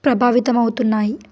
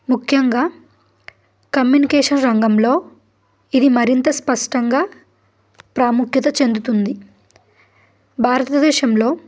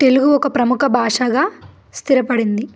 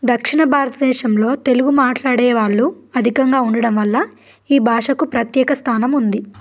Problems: background sounds at intervals